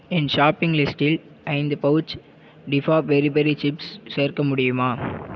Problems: none marked